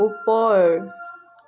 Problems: none marked